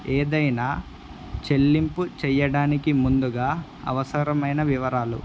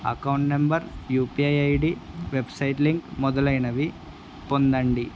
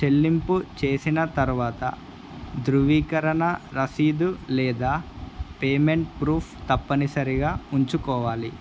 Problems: constant background noise